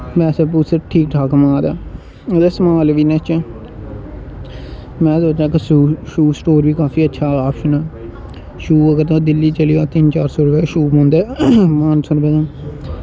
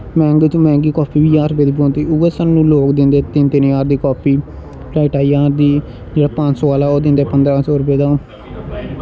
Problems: constant background noise